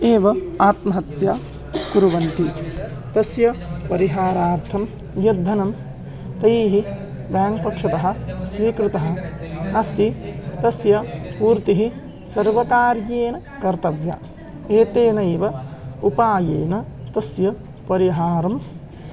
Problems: constant background noise, continuous background conversations